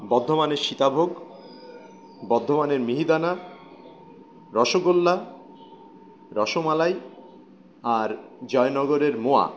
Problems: none marked